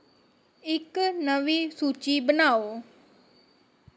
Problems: low volume